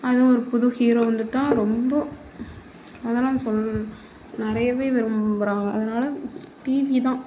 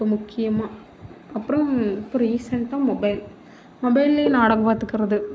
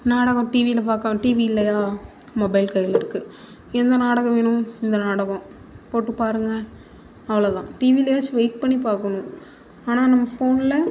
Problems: none marked